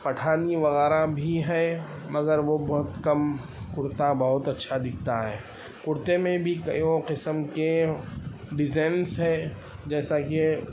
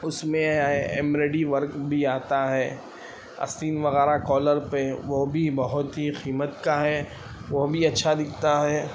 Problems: constant background noise